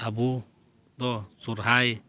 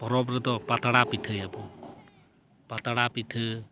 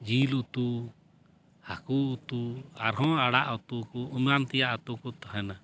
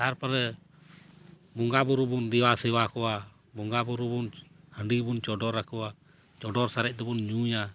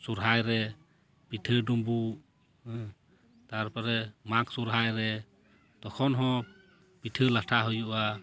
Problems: background sounds at intervals